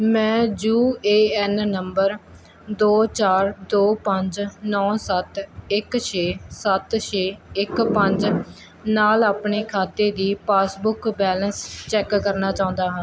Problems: constant background noise